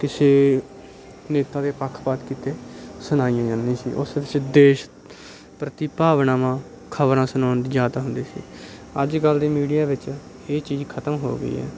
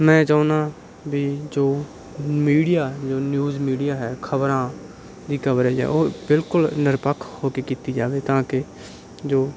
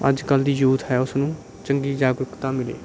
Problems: none marked